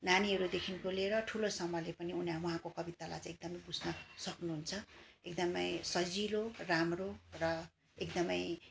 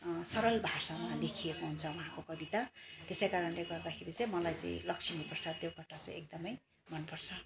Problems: background sounds at intervals, background conversations at intervals